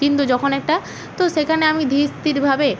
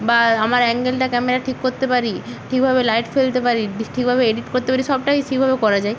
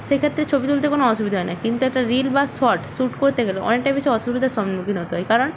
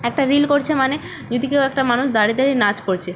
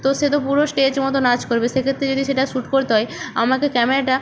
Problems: none marked